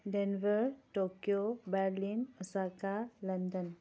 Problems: background sounds at intervals, low volume